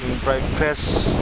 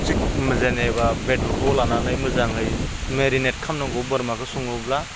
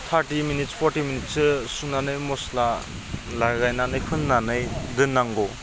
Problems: none marked